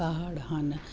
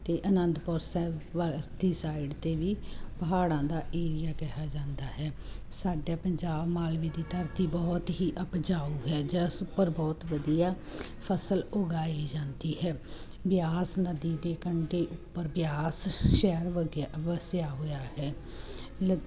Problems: constant background noise